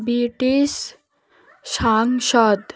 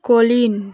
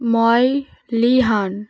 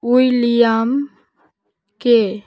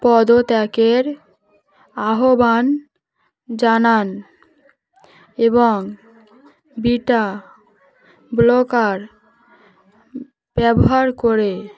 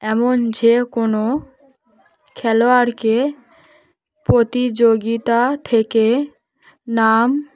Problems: none marked